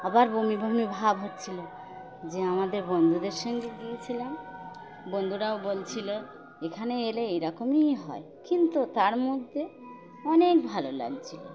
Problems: constant background noise